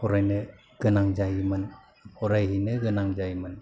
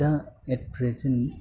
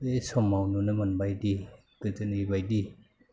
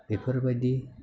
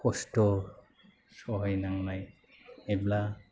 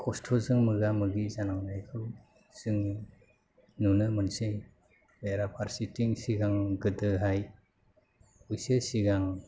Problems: low volume